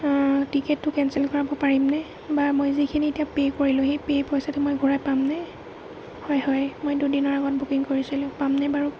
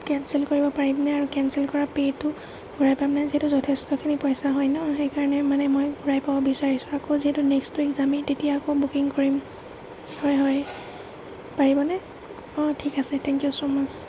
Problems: none marked